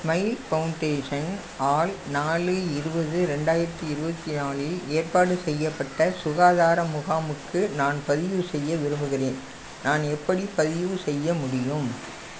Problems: constant background noise